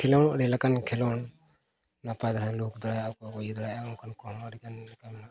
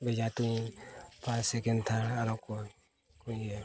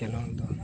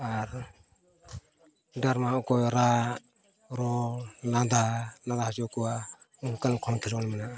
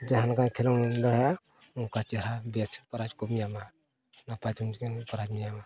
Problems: constant background noise, continuous background conversations, low volume